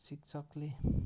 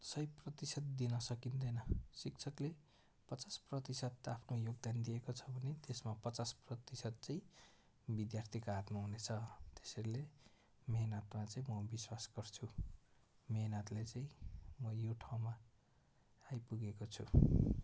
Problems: background sounds at intervals